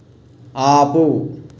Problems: none marked